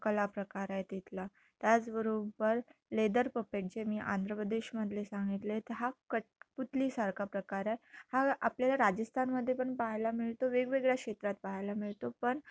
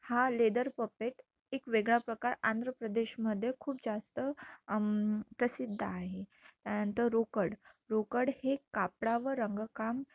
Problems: low volume